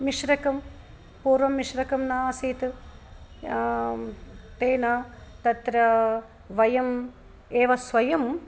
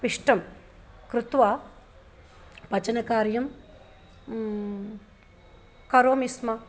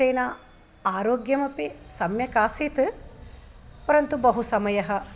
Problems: none marked